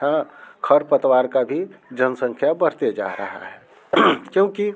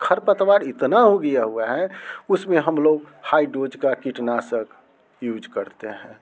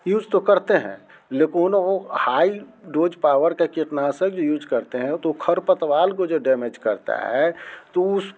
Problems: none marked